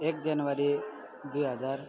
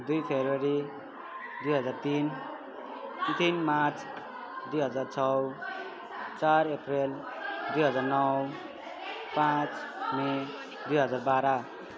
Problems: continuous background conversations